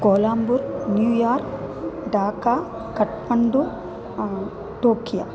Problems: background sounds at intervals, background conversations at intervals